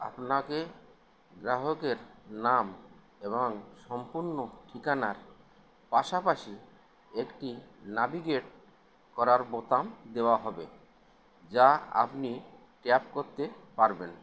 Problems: constant background noise